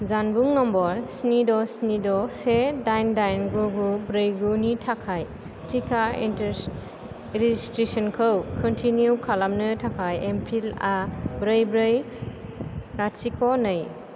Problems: low volume